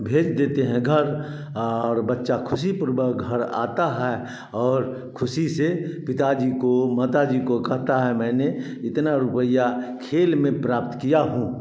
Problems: background sounds at intervals, echo